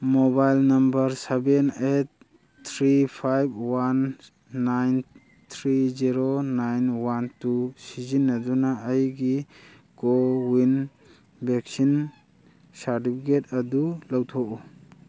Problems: none marked